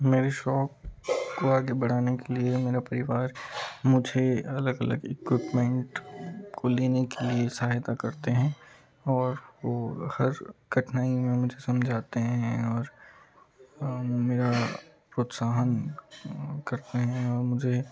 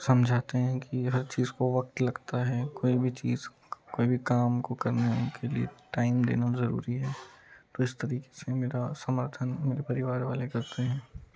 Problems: background sounds at intervals, low volume